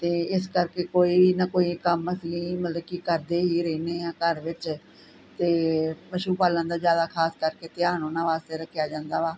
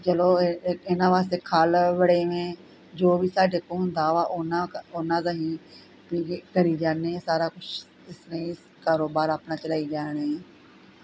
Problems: none marked